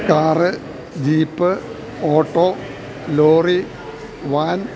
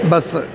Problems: continuous background conversations